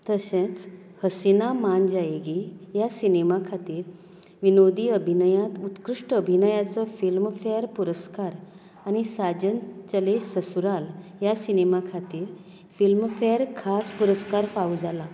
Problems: none marked